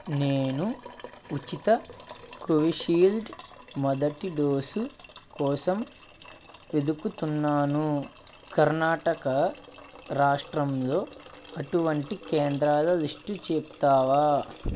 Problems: constant background noise